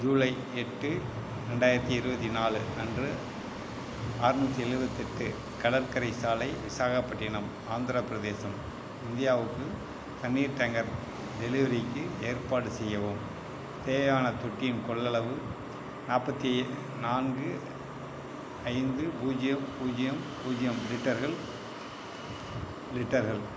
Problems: constant background noise